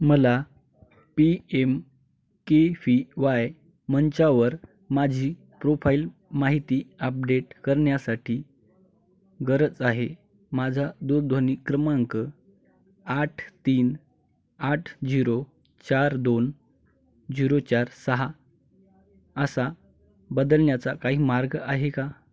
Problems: none marked